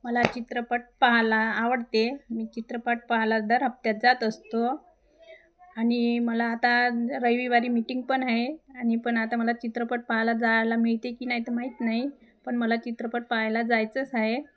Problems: constant background noise